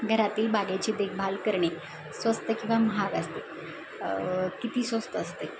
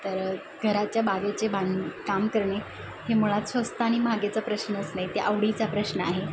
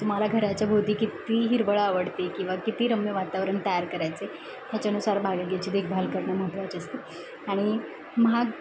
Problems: constant background noise, background conversations at intervals